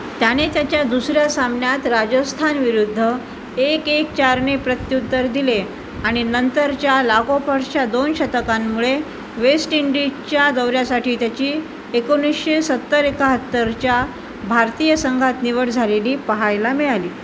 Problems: constant background noise